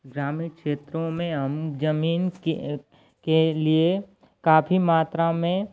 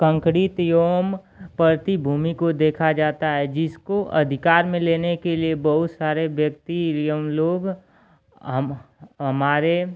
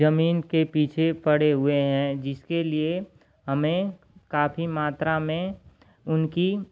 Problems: constant background noise